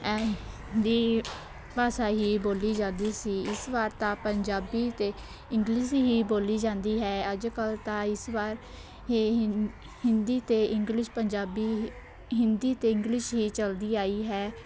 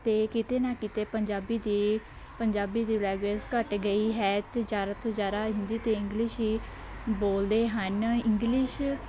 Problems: none marked